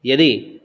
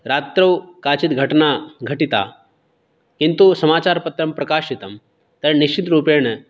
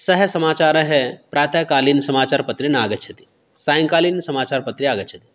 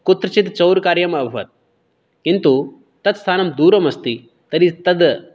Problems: none marked